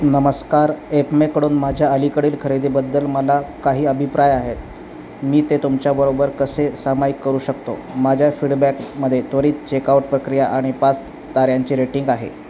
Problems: constant background noise